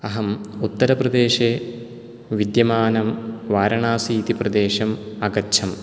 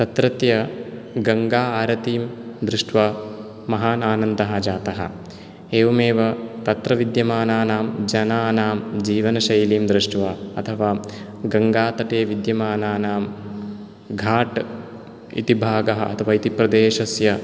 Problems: none marked